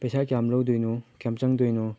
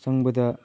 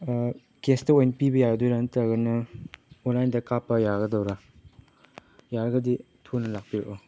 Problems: none marked